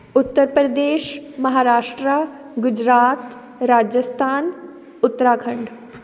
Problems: none marked